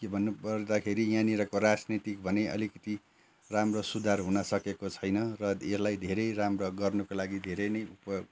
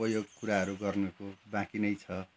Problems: background sounds at intervals